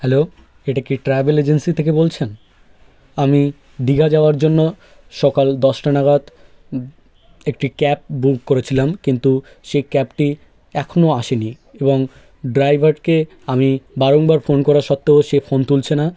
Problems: background sounds at intervals, background conversations at intervals